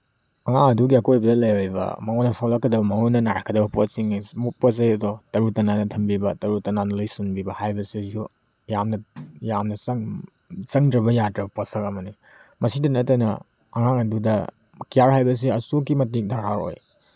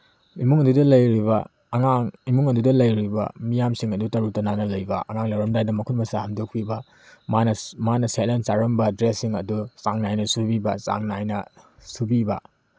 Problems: background sounds at intervals